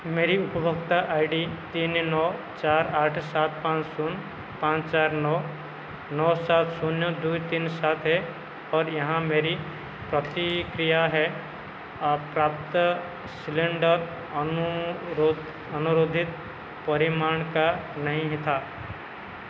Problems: constant background noise